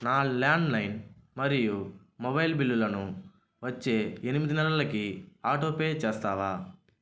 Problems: constant background noise